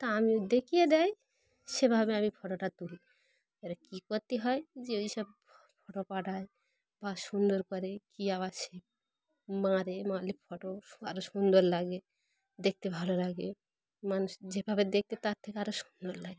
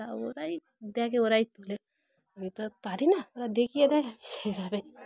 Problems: background sounds at intervals, background conversations at intervals